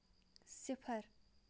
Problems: none marked